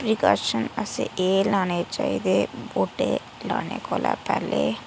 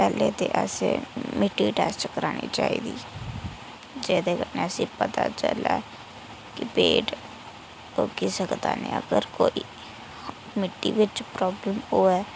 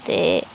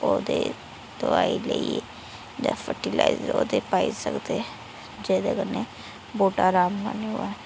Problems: constant background noise